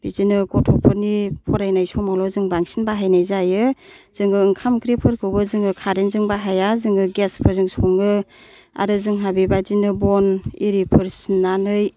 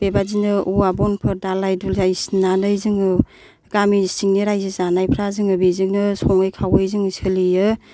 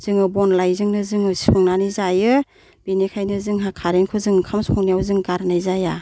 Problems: none marked